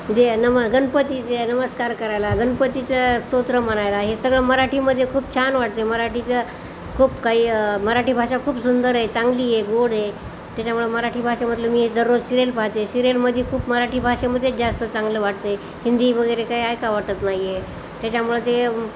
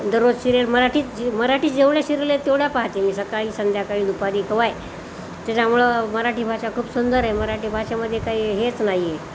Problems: none marked